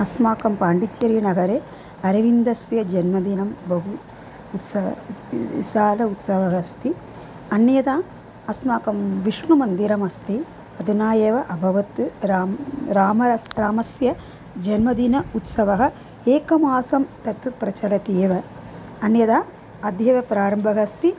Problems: constant background noise